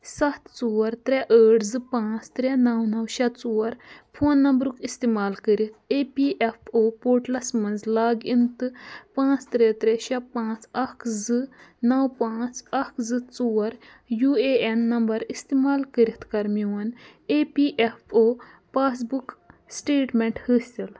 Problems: none marked